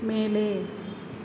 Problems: none marked